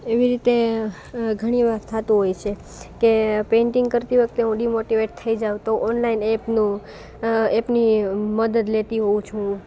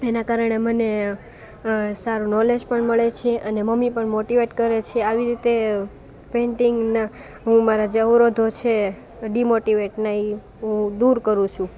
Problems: constant background noise